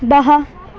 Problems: constant background noise